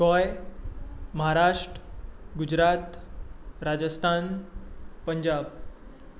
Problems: none marked